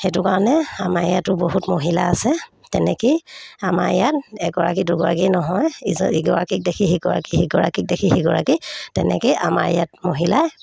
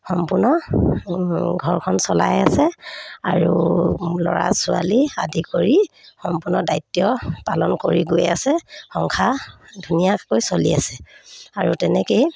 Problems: none marked